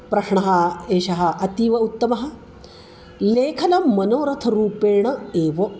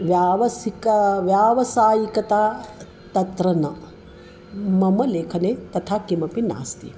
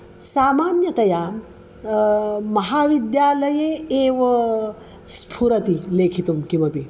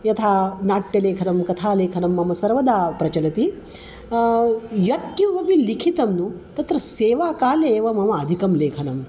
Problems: none marked